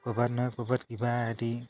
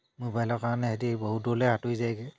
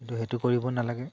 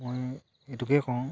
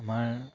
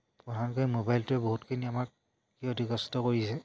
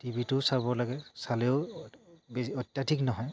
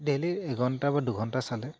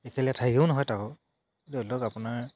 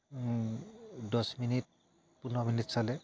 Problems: none marked